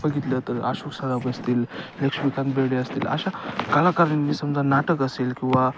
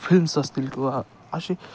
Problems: constant background noise, continuous background conversations